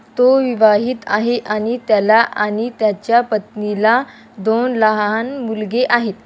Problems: constant background noise, background conversations at intervals